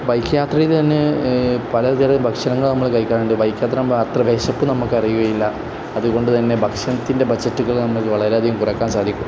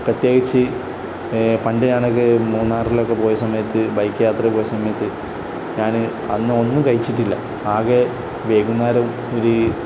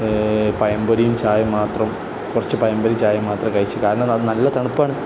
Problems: none marked